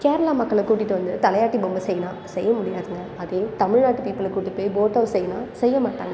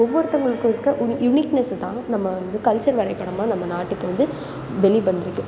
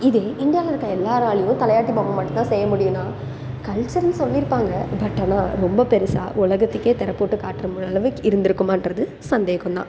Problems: background sounds at intervals